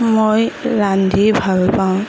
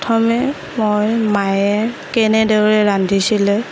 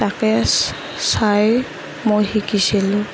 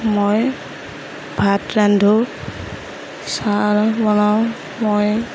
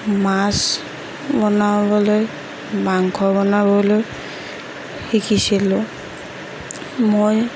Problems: none marked